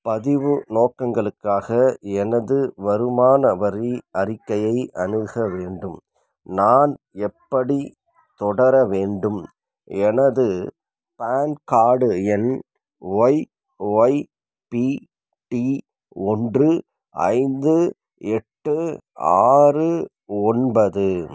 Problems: none marked